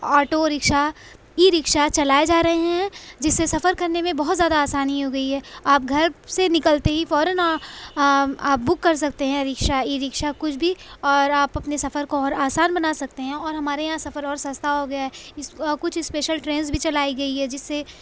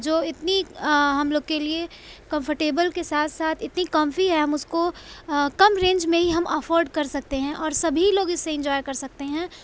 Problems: none marked